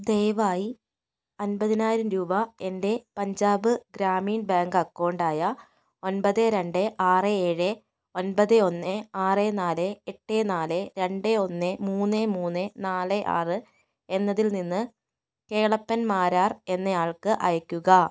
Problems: none marked